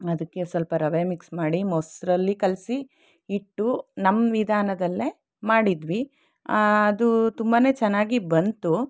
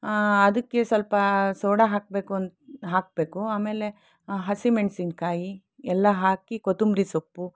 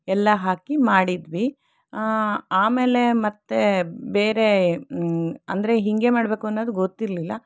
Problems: none marked